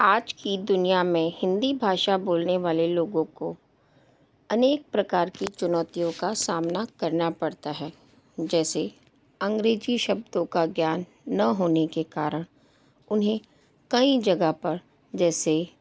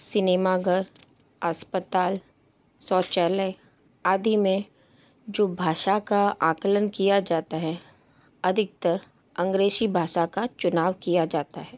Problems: background sounds at intervals